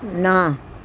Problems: none marked